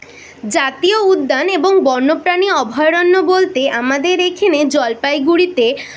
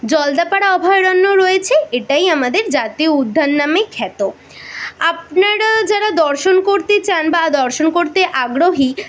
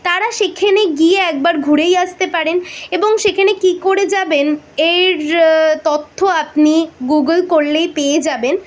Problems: none marked